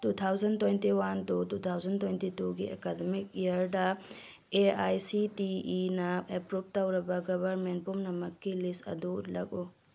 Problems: none marked